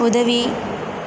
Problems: constant background noise